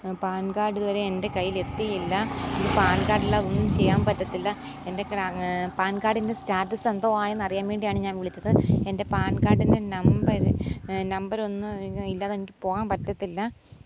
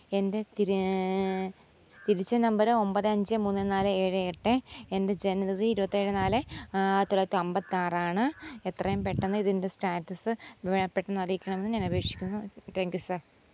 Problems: none marked